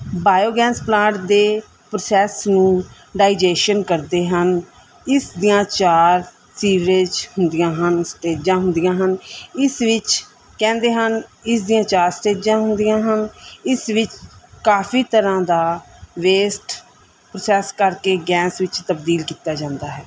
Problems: none marked